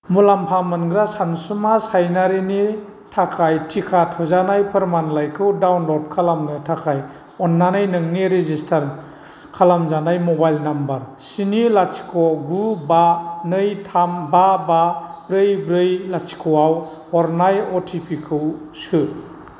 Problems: constant background noise